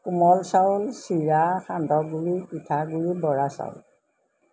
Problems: none marked